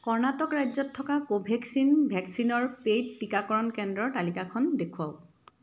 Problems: background sounds at intervals